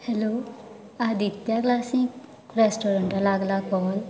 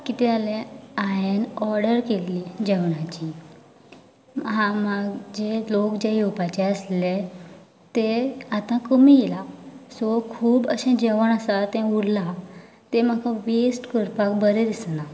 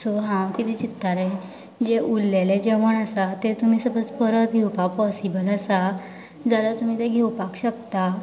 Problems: background sounds at intervals, continuous background conversations